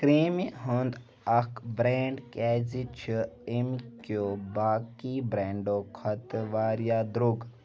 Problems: background conversations at intervals